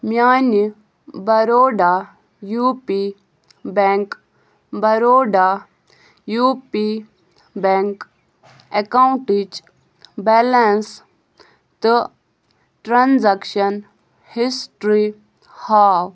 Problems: none marked